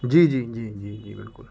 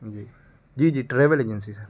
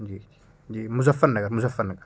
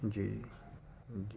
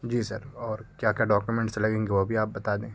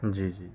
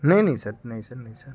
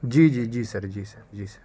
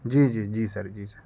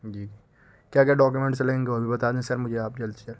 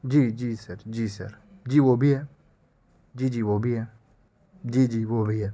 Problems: constant background noise